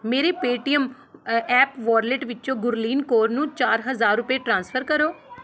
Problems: none marked